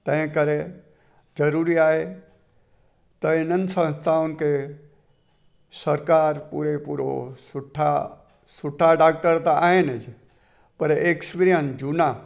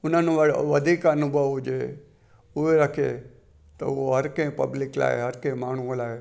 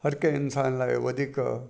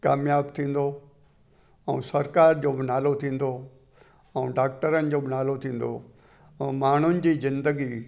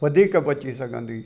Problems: constant background noise